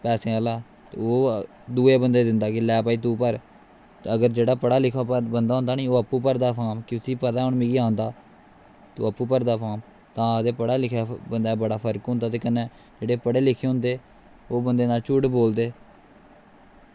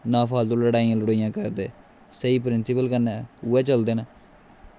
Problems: constant background noise